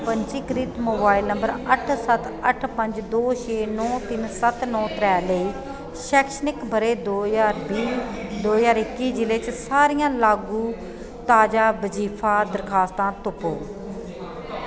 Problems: constant background noise, echo